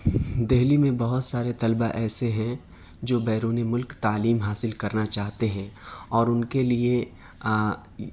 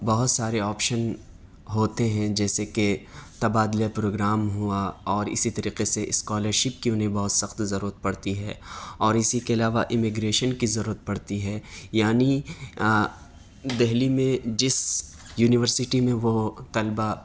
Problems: none marked